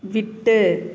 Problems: none marked